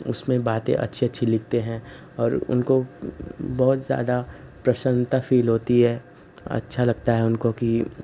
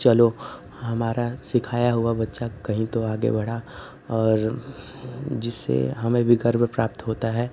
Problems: constant background noise